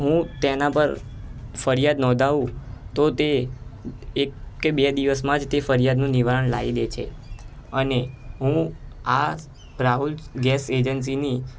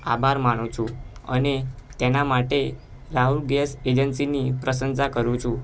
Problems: constant background noise